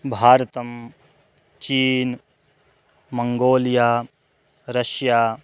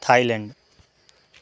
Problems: none marked